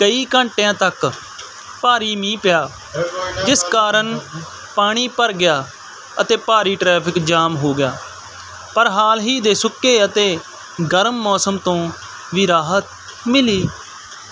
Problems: constant background noise